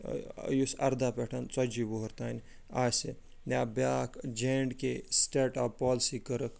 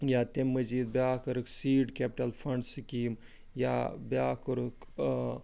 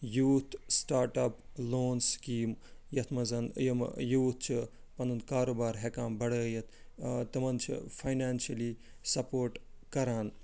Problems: none marked